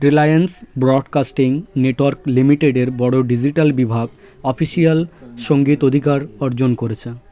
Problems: constant background noise, continuous background conversations